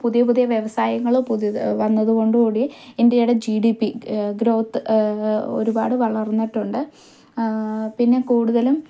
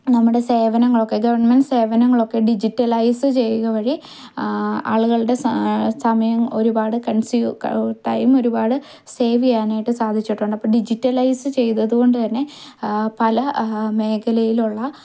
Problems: none marked